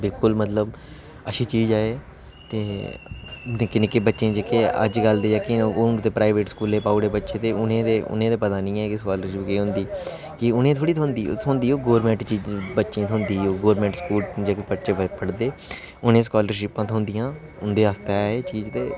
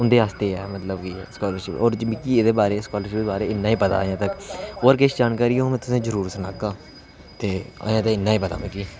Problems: constant background noise